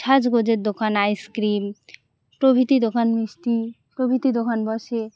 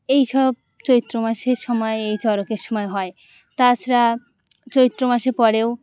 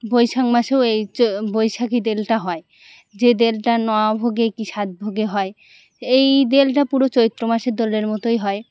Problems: constant background noise